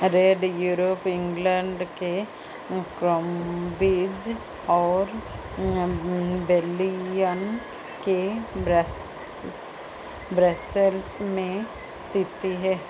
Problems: background sounds at intervals